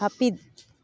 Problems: background sounds at intervals